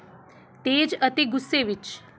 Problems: background sounds at intervals